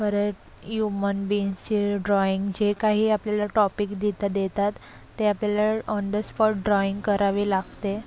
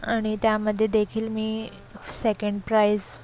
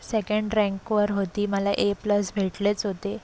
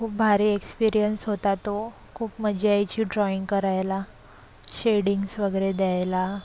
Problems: constant background noise, low volume